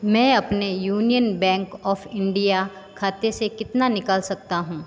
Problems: constant background noise, background conversations at intervals